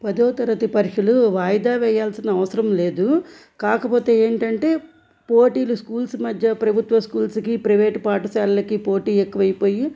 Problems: background sounds at intervals